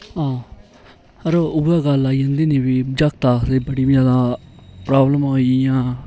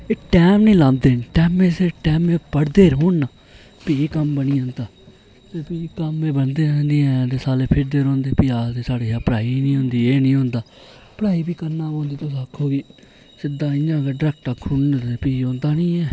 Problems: none marked